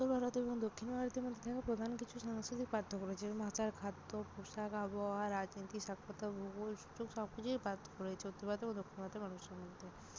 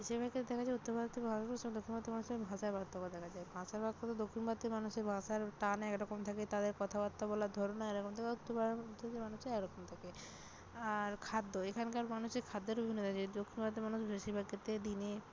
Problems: constant background noise